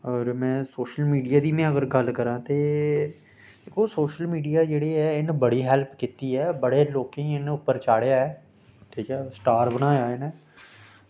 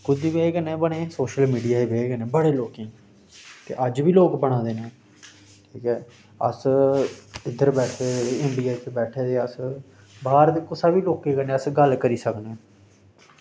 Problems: none marked